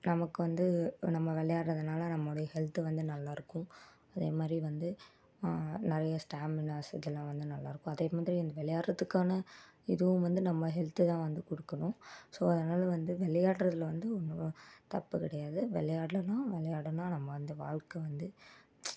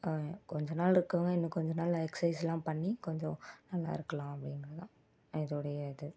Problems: low volume